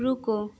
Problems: none marked